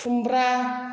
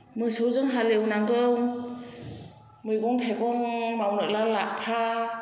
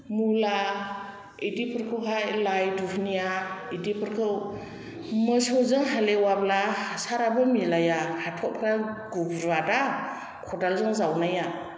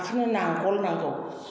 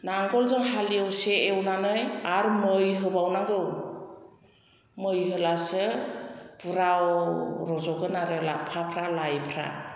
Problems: background conversations at intervals, echo